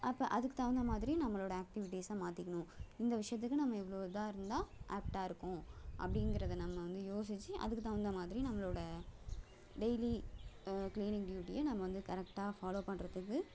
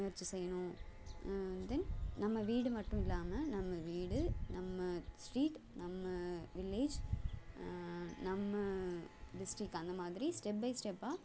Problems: background sounds at intervals